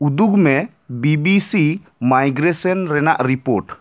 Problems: none marked